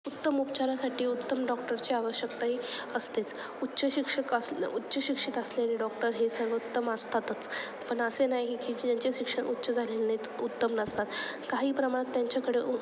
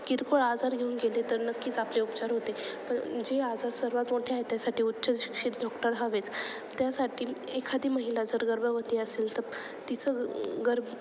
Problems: constant background noise, background conversations at intervals